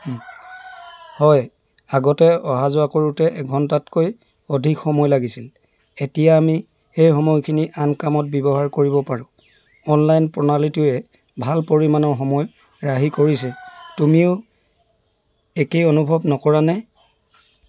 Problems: constant background noise